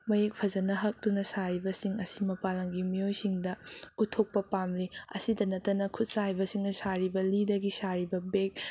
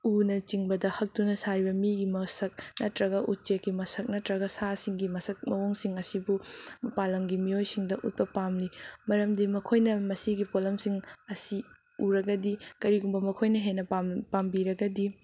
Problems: background sounds at intervals